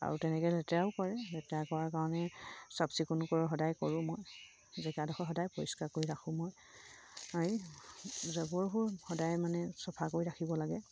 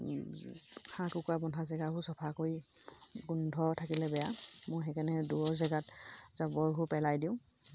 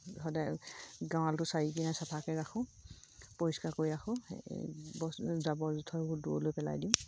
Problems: low volume